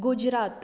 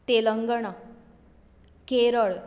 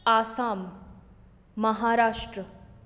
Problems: none marked